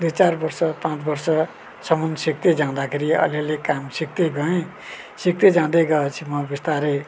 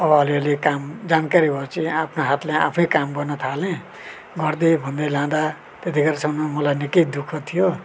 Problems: none marked